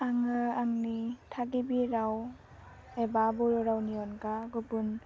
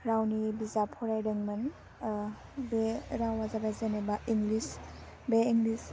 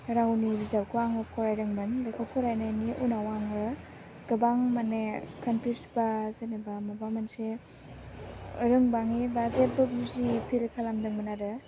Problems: none marked